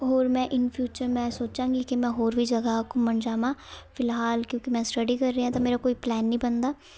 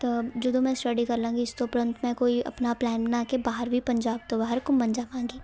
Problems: background sounds at intervals, continuous background conversations